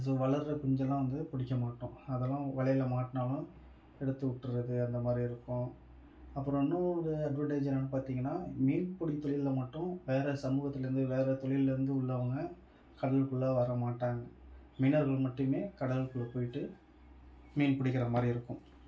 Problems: none marked